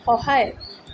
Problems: constant background noise